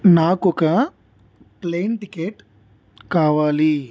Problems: constant background noise